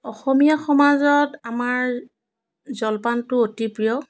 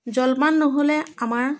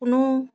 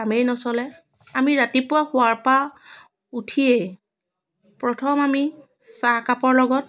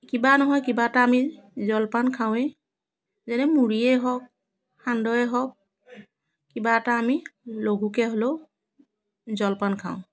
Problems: none marked